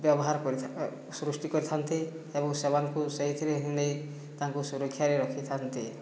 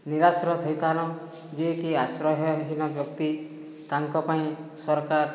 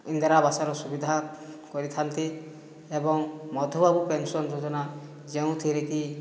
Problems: low volume